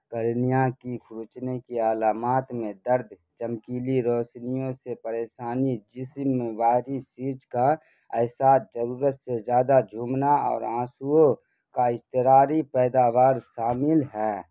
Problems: constant background noise